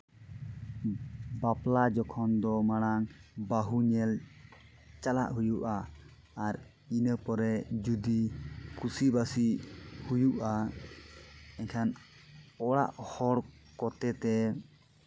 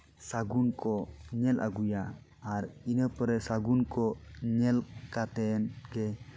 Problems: background sounds at intervals